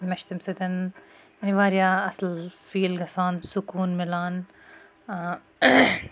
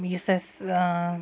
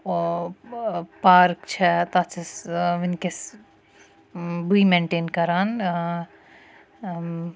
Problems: constant background noise